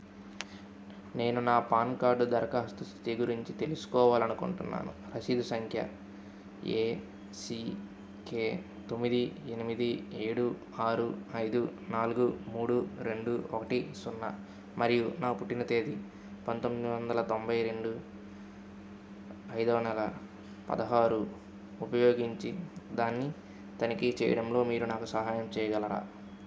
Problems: none marked